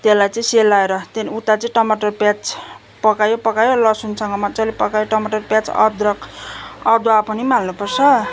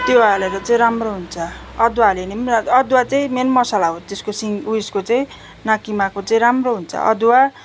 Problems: background sounds at intervals